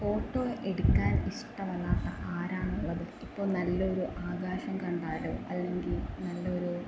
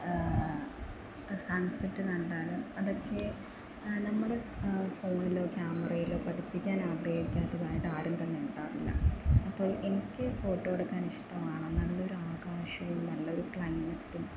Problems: constant background noise, low volume